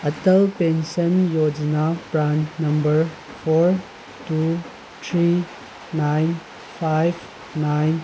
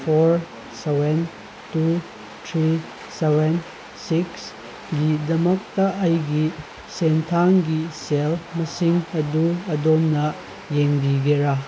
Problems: constant background noise